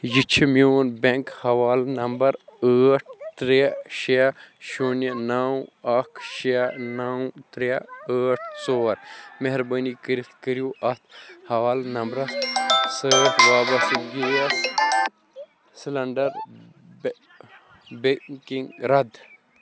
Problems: background sounds at intervals